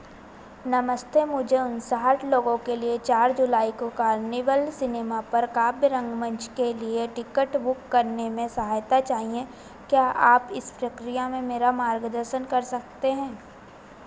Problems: constant background noise